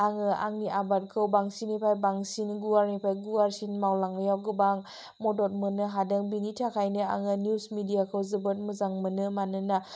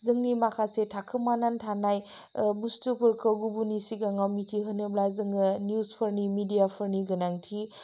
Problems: low volume